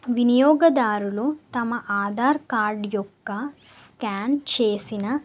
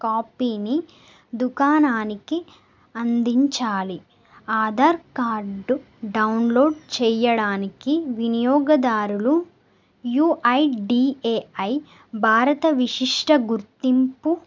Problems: none marked